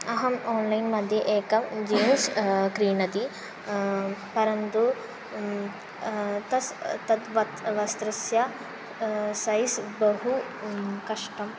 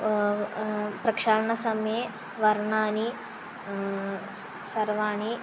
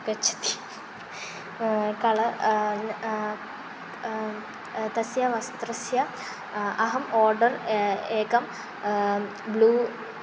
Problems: constant background noise